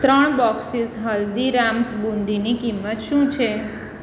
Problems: none marked